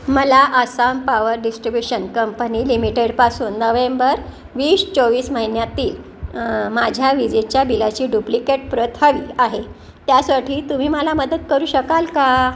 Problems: none marked